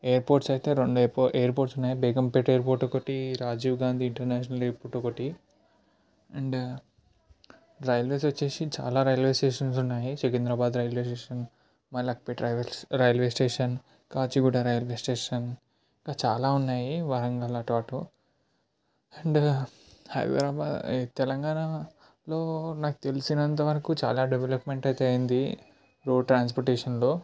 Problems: low volume